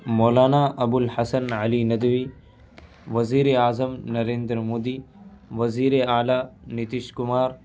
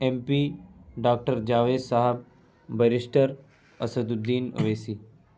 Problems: none marked